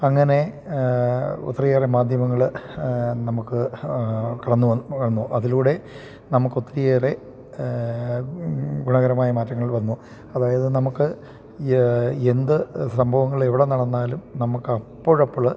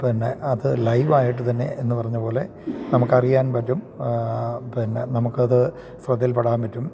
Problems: none marked